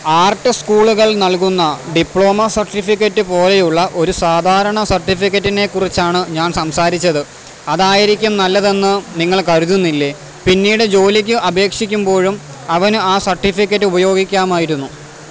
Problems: constant background noise